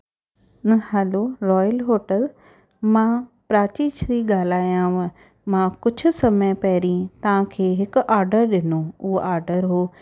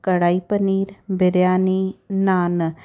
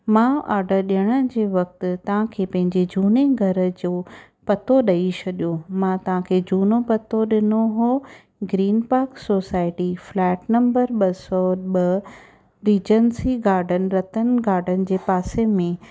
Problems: none marked